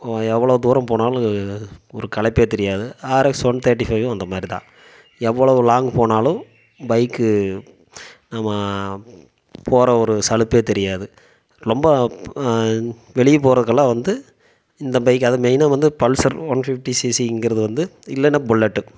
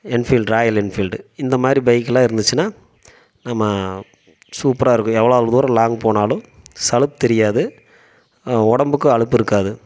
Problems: none marked